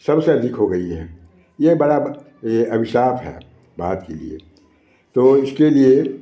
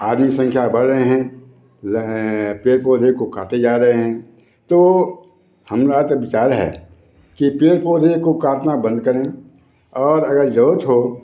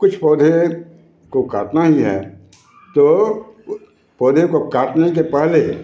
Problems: background sounds at intervals, background conversations at intervals